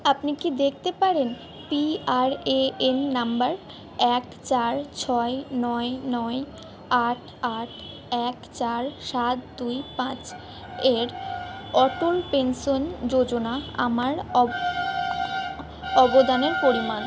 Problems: background sounds at intervals